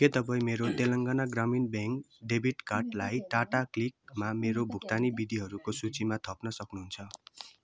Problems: background conversations at intervals